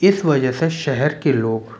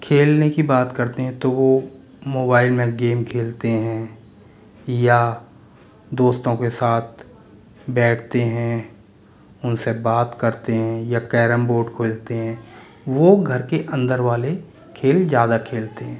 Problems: constant background noise, background conversations at intervals